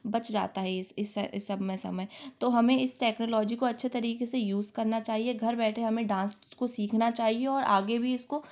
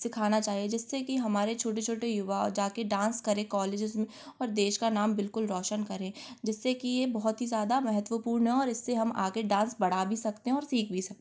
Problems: none marked